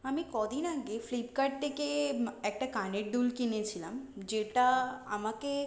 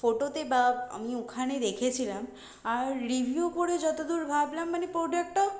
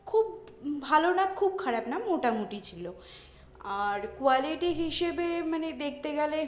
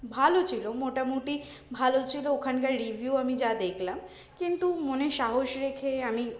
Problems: constant background noise